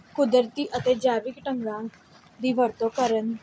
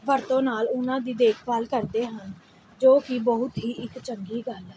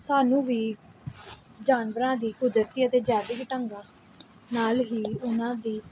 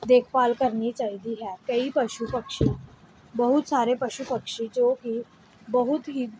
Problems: background sounds at intervals